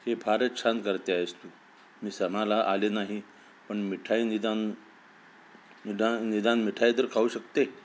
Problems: constant background noise